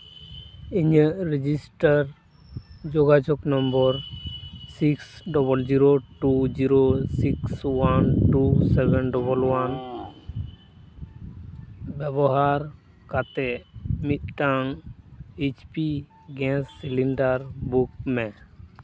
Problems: background sounds at intervals